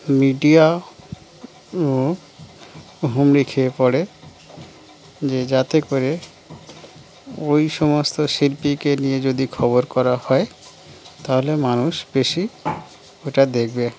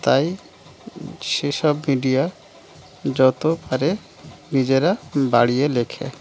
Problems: constant background noise